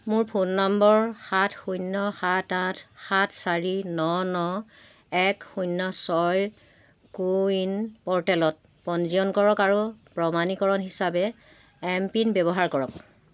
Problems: none marked